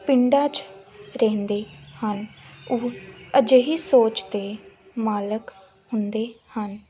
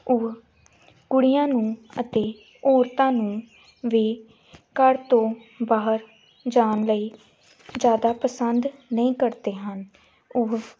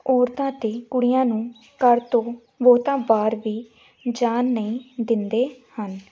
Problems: background sounds at intervals